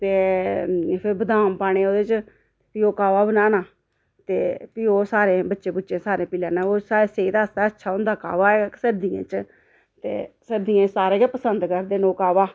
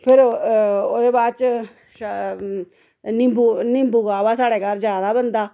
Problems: none marked